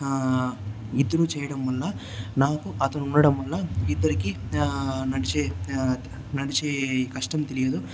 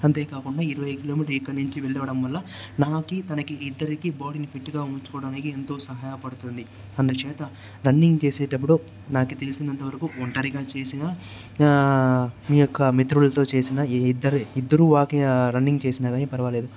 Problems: constant background noise